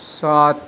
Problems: constant background noise